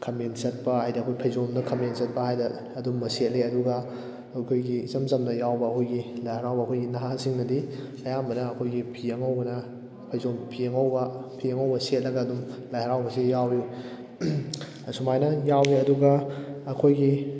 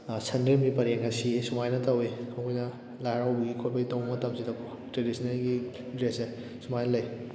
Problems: constant background noise